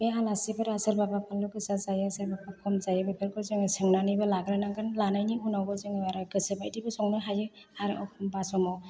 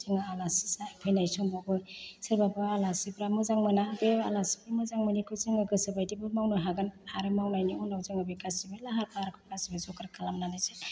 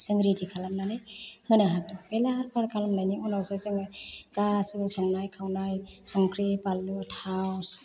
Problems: low volume